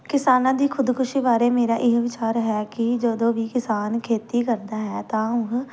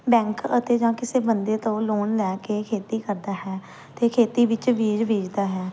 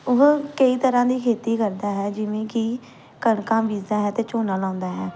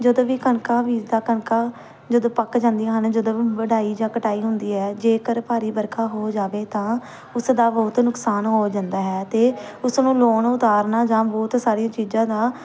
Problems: background sounds at intervals